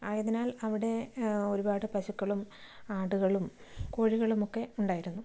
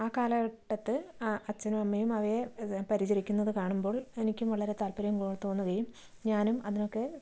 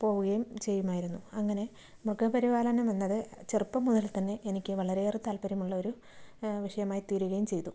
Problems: background sounds at intervals, low volume